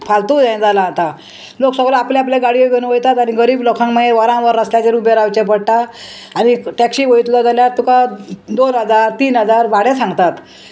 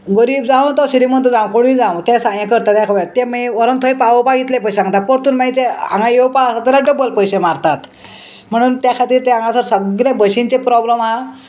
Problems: constant background noise